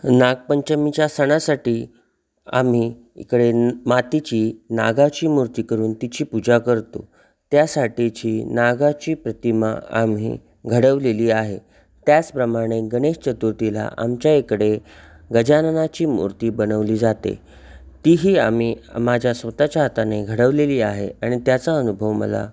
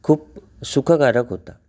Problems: constant background noise